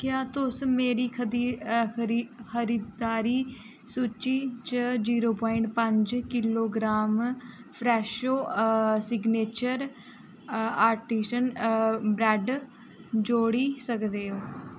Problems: none marked